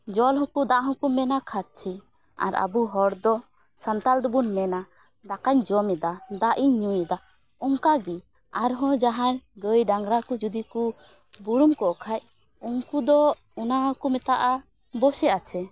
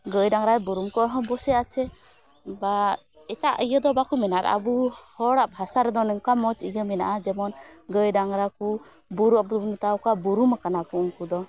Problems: none marked